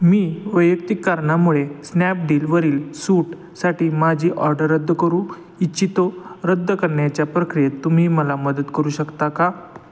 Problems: constant background noise